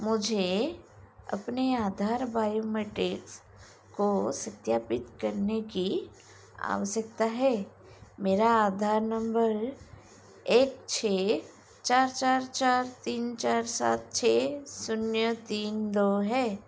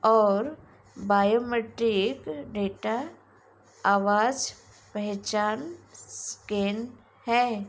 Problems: none marked